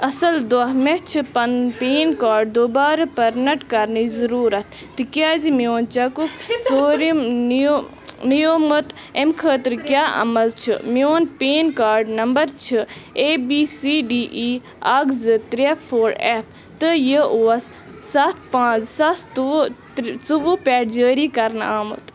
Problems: constant background noise, continuous background conversations